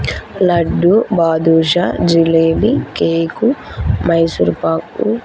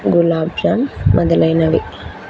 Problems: constant background noise